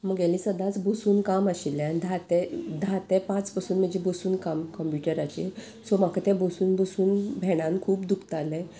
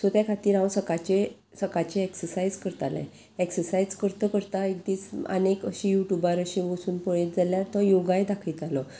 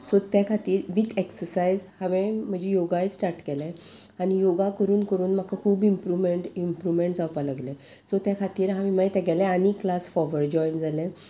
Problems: constant background noise